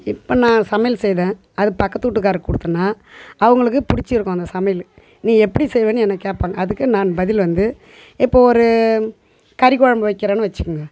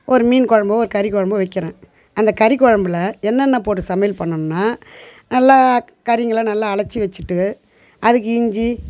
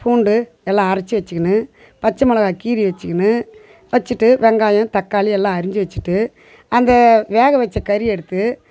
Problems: background sounds at intervals, background conversations at intervals